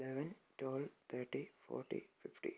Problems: low volume